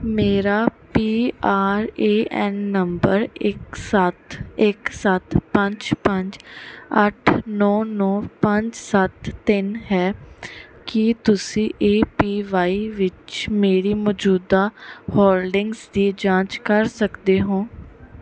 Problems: background sounds at intervals, background conversations at intervals